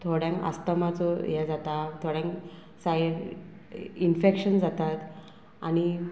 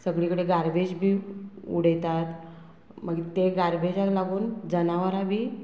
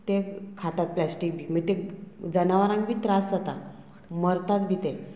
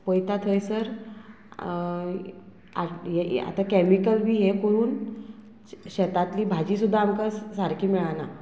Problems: none marked